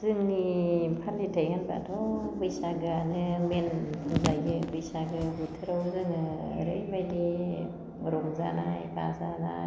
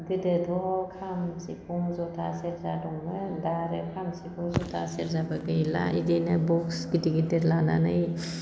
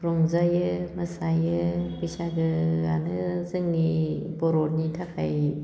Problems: constant background noise